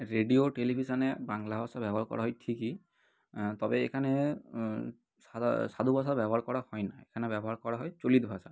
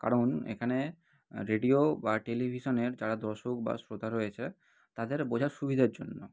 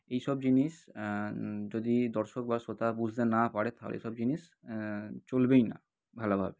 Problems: none marked